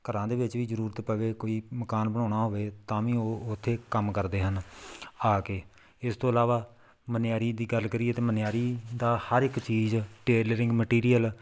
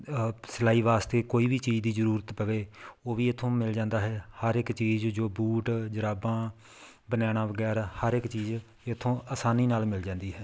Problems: background sounds at intervals